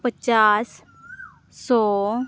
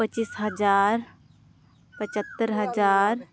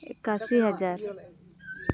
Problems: background sounds at intervals, background conversations at intervals